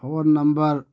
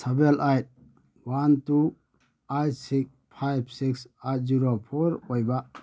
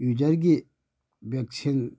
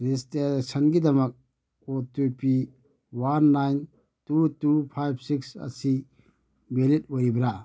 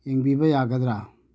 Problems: none marked